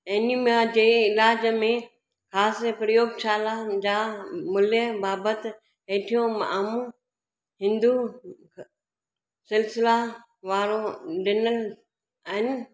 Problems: echo